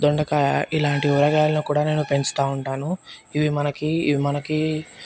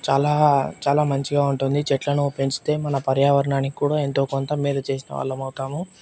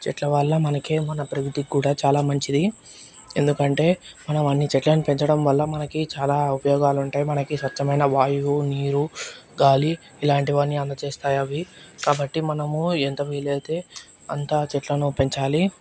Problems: background sounds at intervals